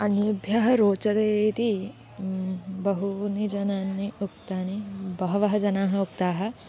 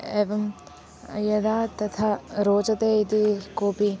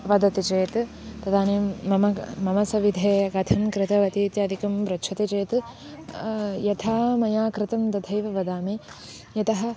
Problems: constant background noise